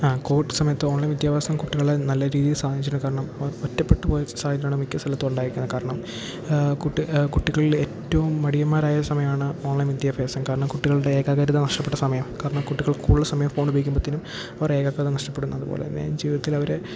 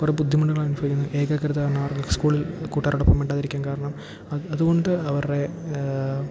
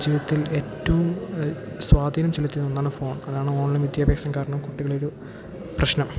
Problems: background sounds at intervals